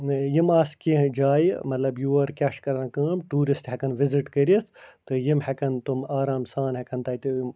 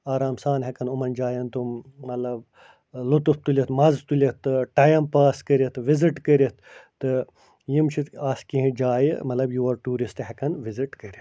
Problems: none marked